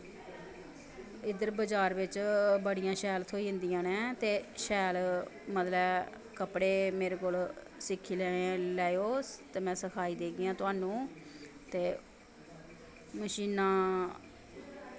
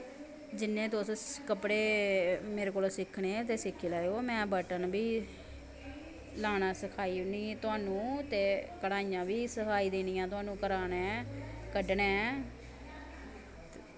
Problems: none marked